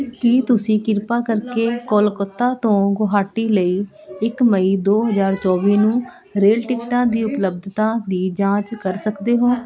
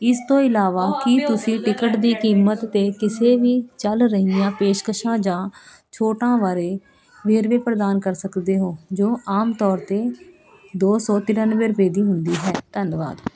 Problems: none marked